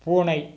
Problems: none marked